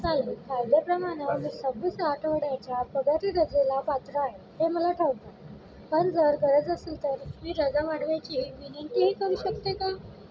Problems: background sounds at intervals, background conversations at intervals